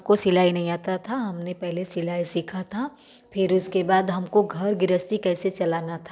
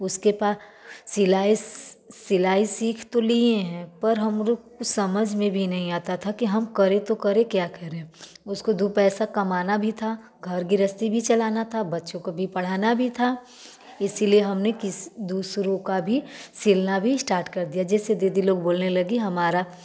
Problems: background sounds at intervals, background conversations at intervals, echo